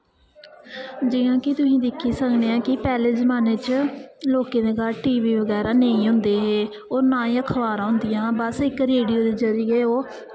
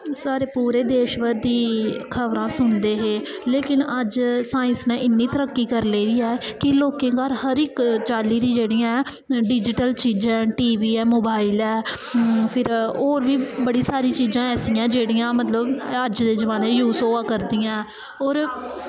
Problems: echo